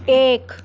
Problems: constant background noise